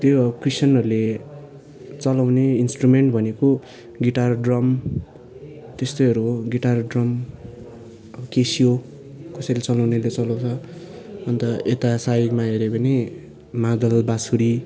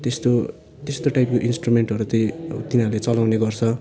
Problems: background sounds at intervals